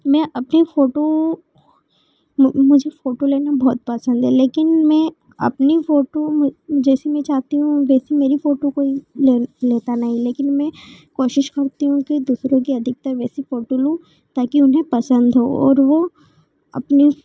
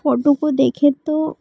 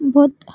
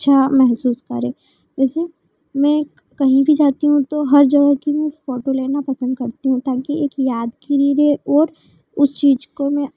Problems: none marked